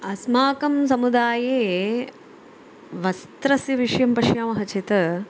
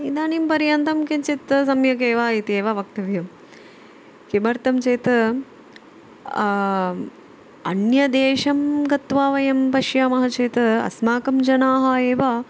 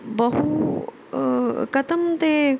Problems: none marked